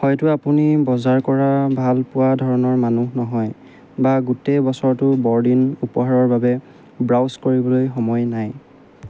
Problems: none marked